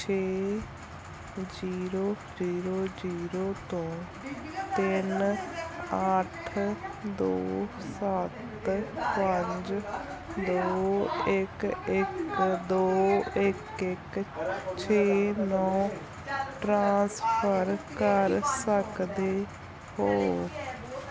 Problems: background sounds at intervals